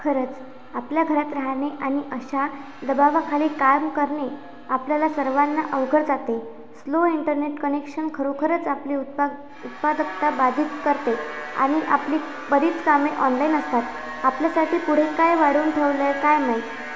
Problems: constant background noise